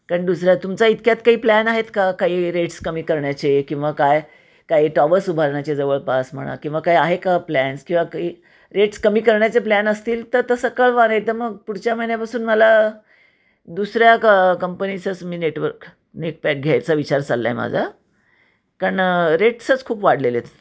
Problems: constant background noise, echo